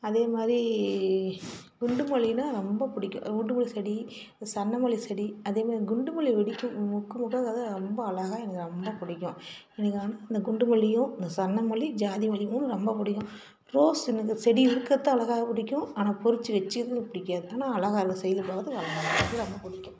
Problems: constant background noise